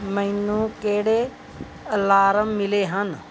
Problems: none marked